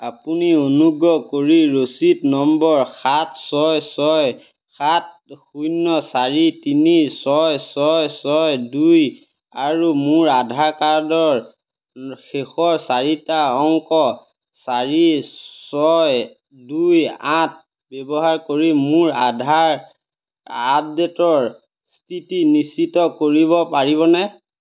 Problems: none marked